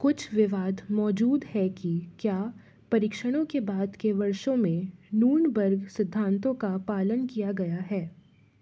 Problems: none marked